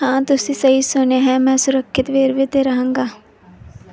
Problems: background conversations at intervals